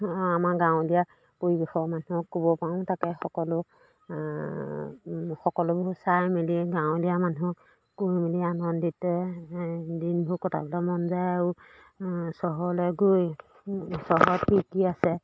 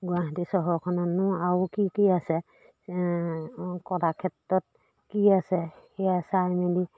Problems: background sounds at intervals